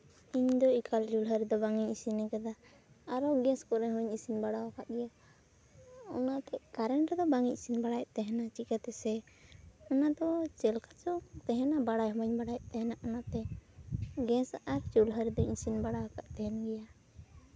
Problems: none marked